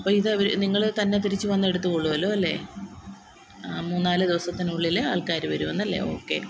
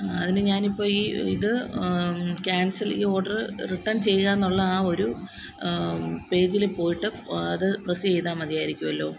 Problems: constant background noise